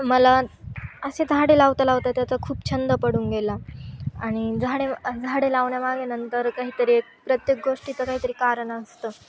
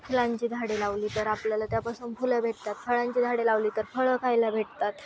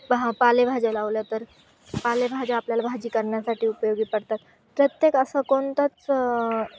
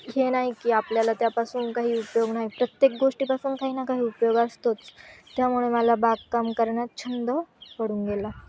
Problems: constant background noise, background conversations at intervals